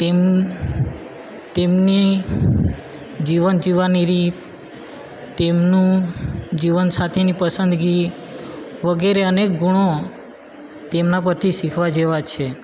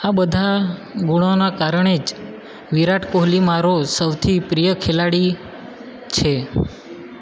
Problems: constant background noise